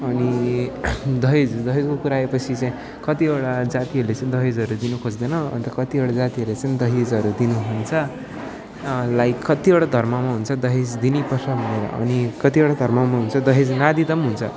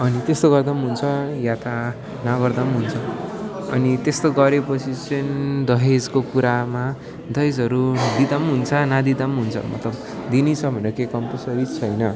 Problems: constant background noise